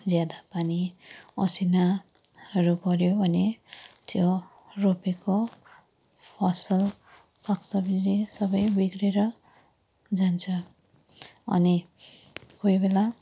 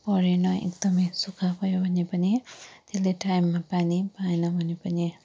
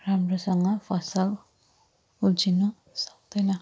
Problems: low volume